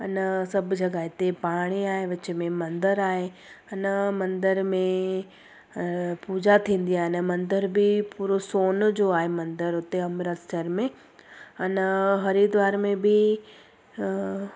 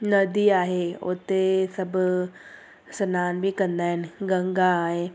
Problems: constant background noise